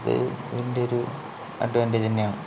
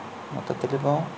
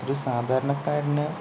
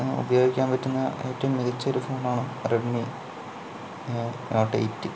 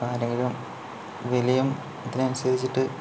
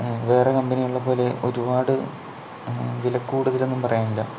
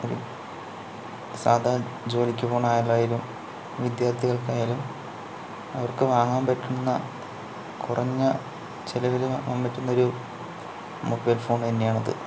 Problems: low volume